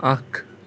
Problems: constant background noise